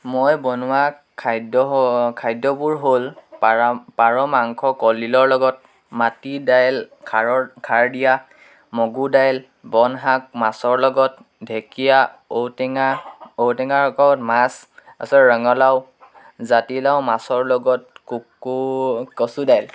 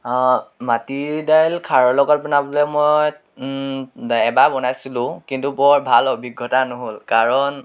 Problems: background sounds at intervals, background conversations at intervals